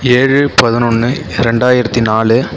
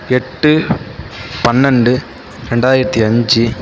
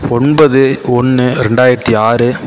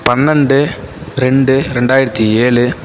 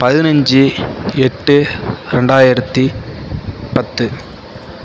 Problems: none marked